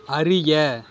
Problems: constant background noise